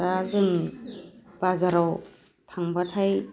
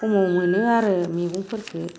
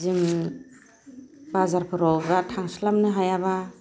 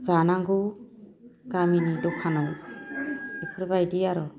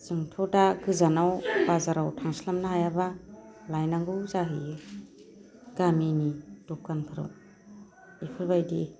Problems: none marked